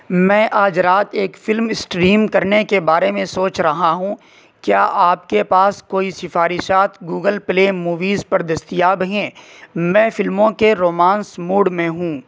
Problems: constant background noise